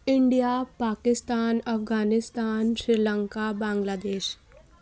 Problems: none marked